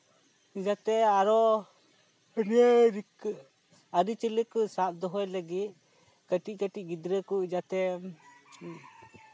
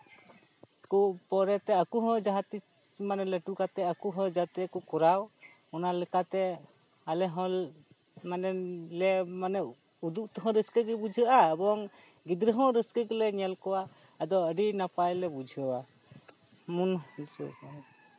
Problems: background sounds at intervals